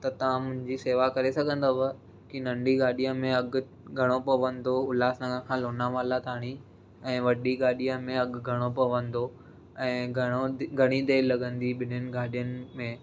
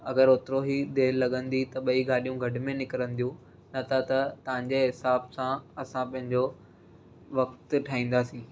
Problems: none marked